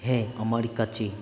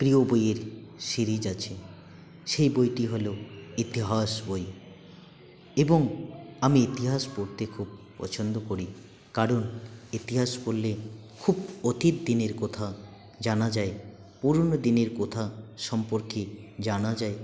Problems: none marked